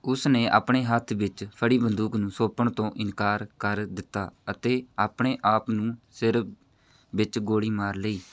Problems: none marked